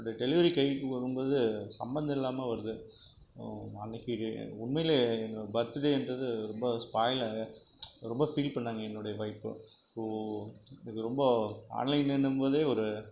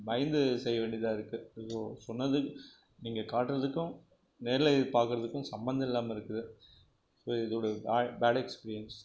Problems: none marked